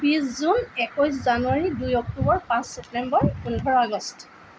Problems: none marked